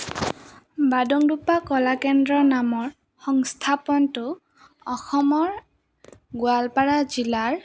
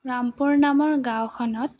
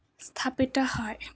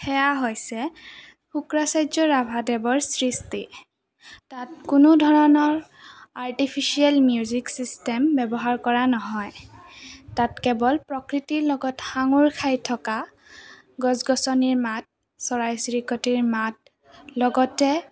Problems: constant background noise, background conversations at intervals